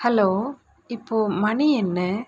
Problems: constant background noise